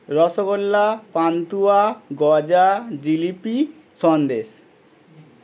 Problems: none marked